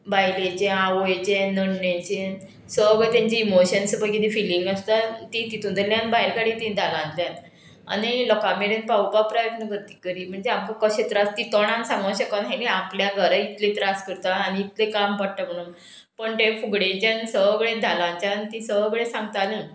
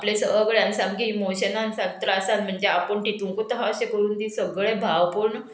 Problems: background sounds at intervals